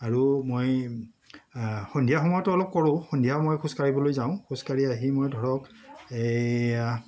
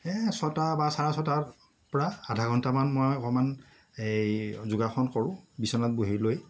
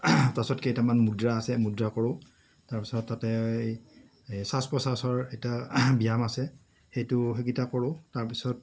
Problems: none marked